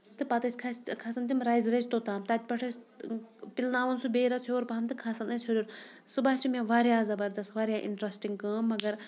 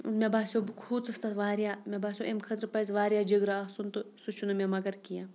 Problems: none marked